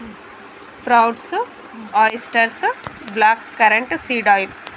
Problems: none marked